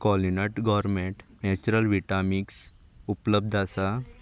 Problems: background sounds at intervals